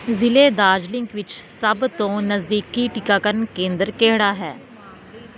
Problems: constant background noise